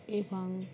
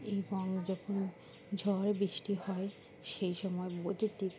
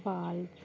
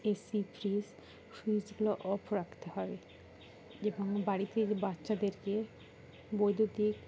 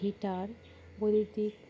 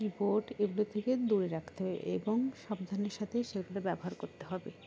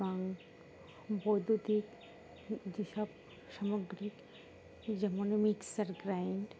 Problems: constant background noise, background conversations at intervals